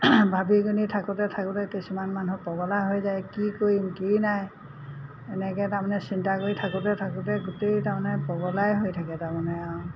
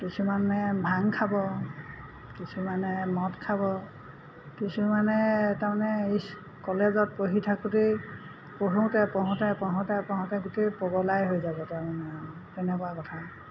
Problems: constant background noise